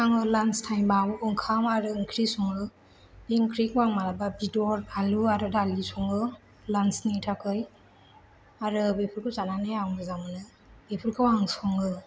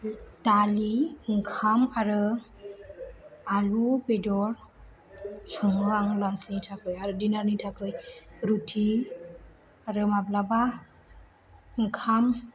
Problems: low volume